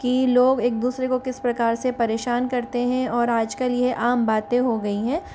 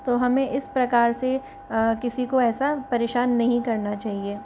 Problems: constant background noise